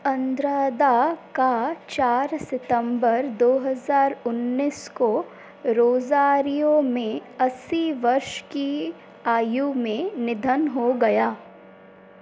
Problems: constant background noise